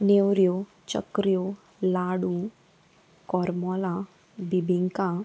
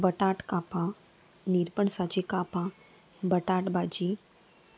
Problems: constant background noise, background conversations at intervals